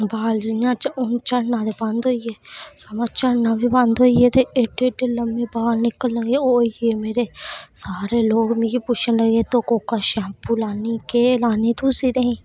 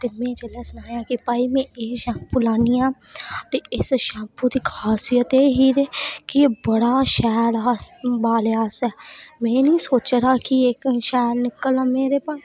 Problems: constant background noise